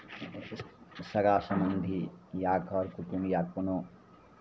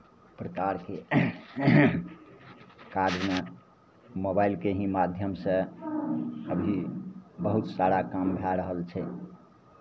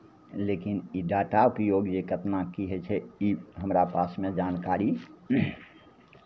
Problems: none marked